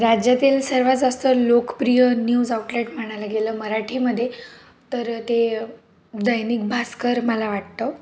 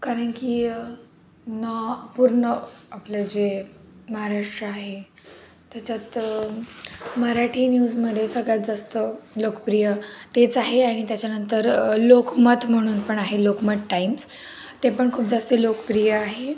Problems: constant background noise, background conversations at intervals